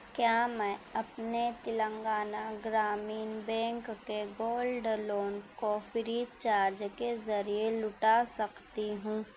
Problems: none marked